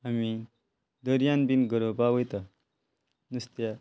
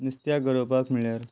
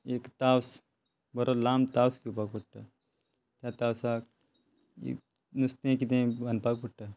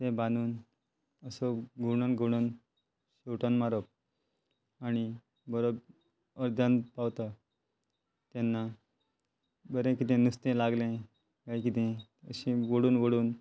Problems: constant background noise